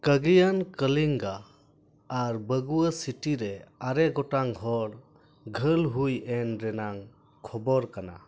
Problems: none marked